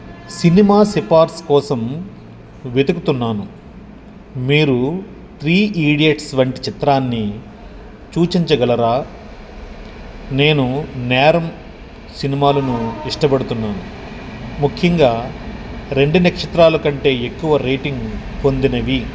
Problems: constant background noise